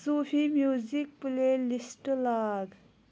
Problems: none marked